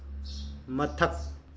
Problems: low volume